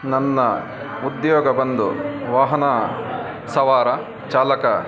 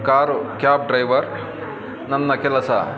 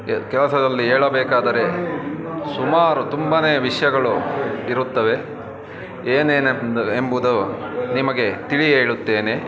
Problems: constant background noise